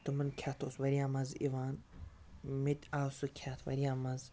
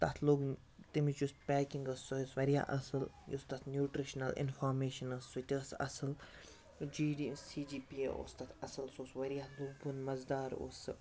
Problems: background sounds at intervals